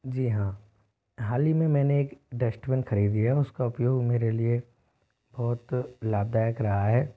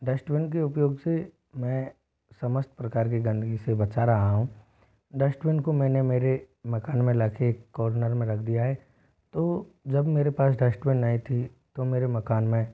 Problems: background sounds at intervals